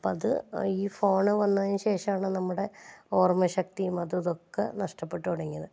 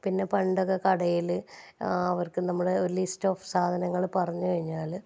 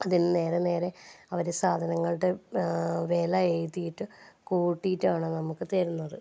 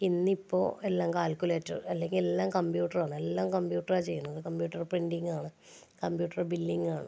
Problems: low volume